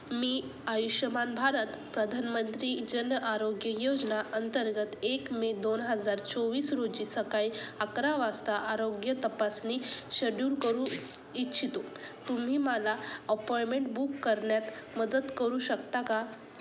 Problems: constant background noise